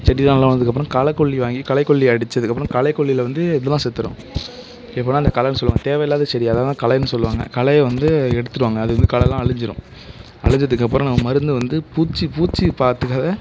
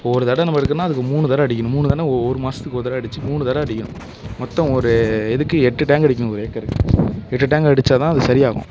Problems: background sounds at intervals